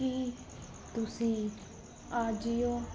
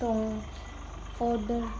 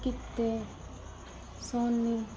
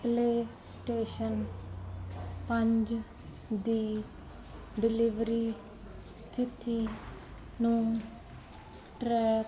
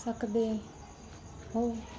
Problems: none marked